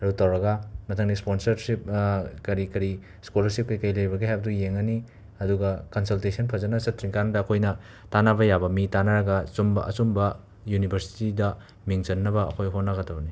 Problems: background sounds at intervals